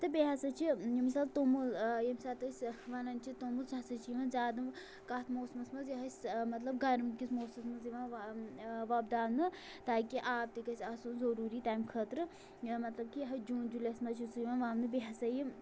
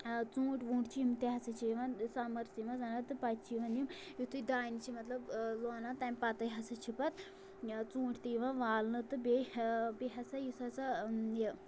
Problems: none marked